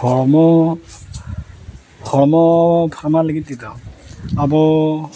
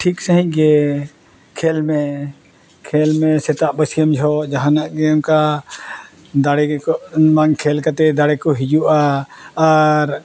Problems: none marked